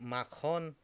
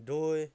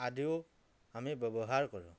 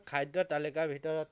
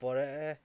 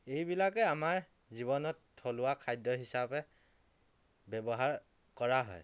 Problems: none marked